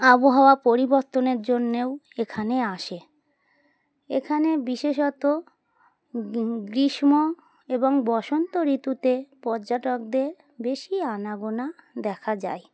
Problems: constant background noise